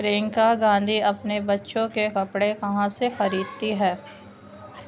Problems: constant background noise